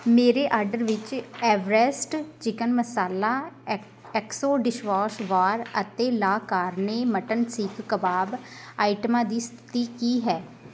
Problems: constant background noise